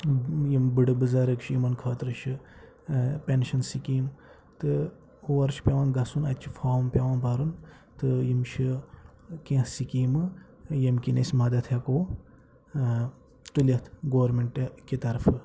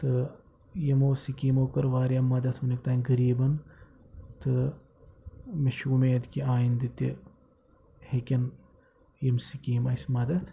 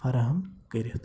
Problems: background sounds at intervals, low volume